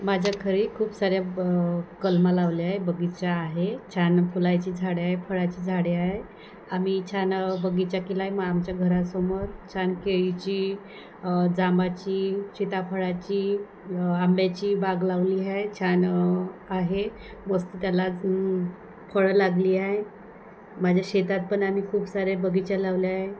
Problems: background sounds at intervals